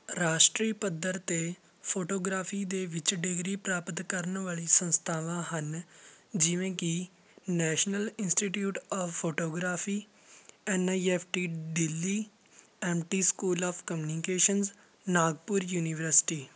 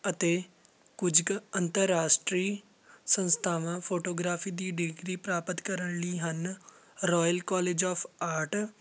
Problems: none marked